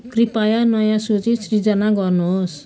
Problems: background sounds at intervals